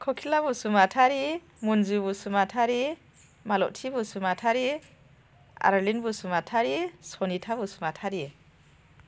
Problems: none marked